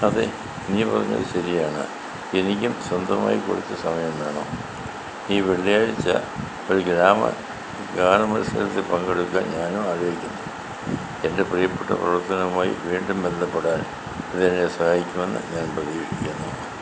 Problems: constant background noise